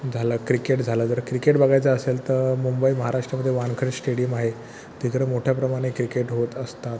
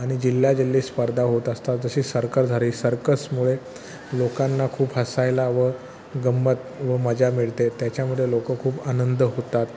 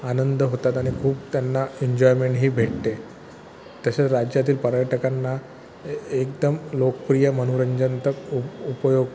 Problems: constant background noise, background conversations at intervals